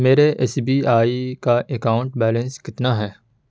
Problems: background sounds at intervals